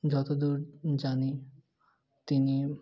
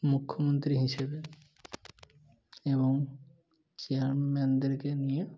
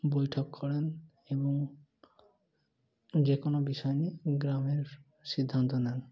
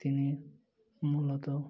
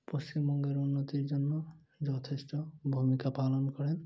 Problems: none marked